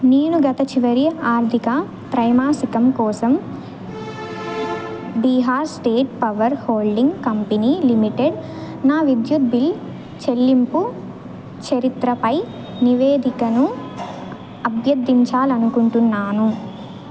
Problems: none marked